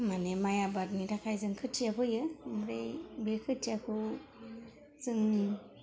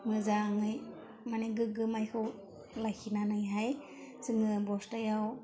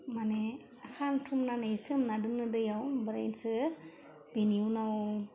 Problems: low volume